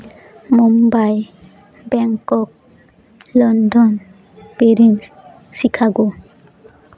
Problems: constant background noise